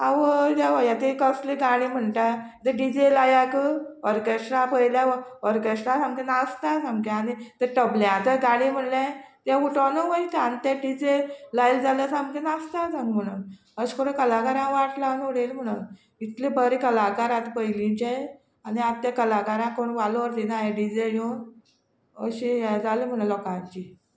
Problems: none marked